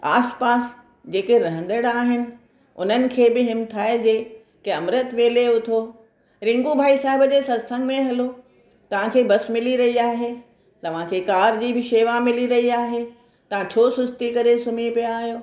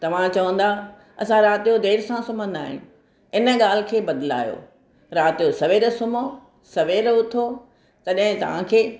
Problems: none marked